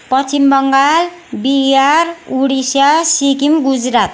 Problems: constant background noise